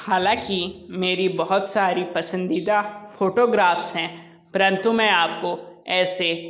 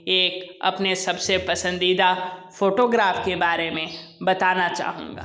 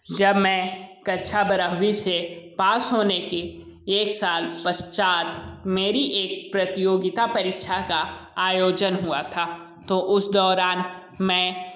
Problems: constant background noise